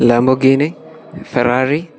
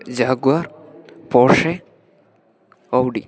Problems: none marked